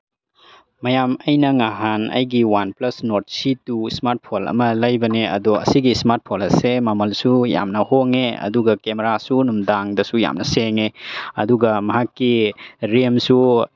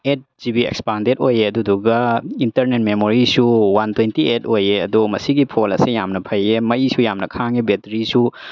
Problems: background sounds at intervals